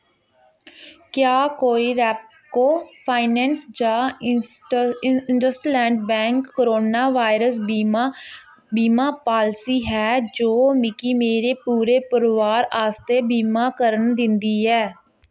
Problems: background sounds at intervals